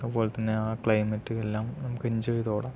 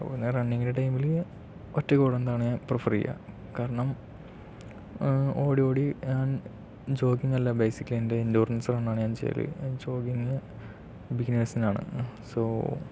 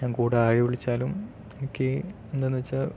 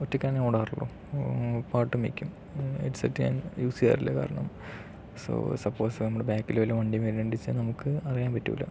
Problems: low volume